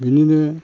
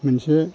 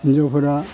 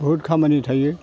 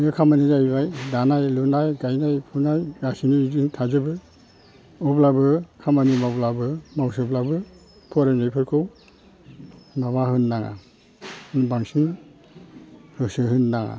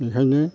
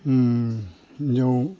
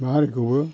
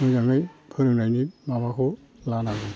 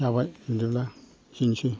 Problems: constant background noise